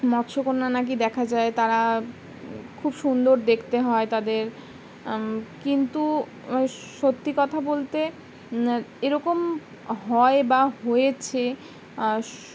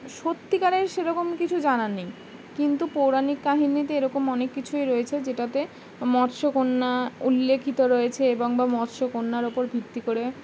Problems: constant background noise